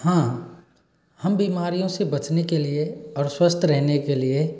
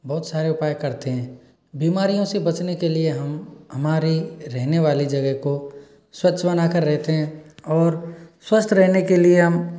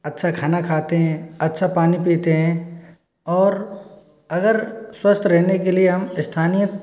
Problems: none marked